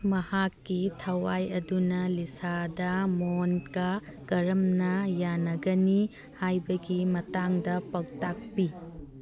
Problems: background sounds at intervals